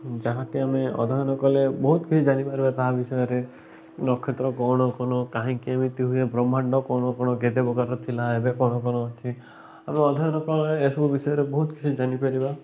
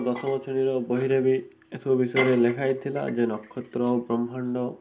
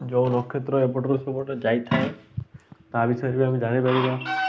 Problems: constant background noise, continuous background conversations